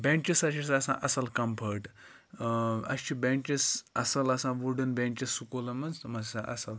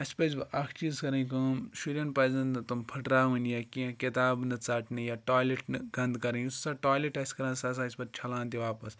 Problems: none marked